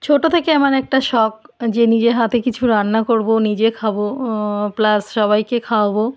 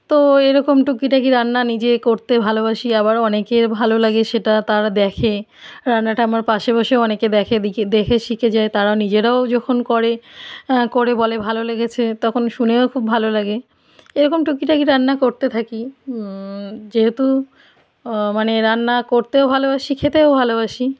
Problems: none marked